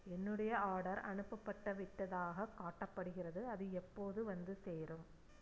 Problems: low volume